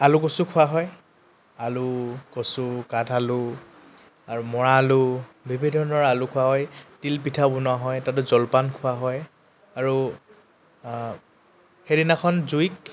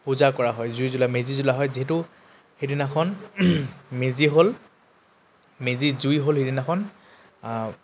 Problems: constant background noise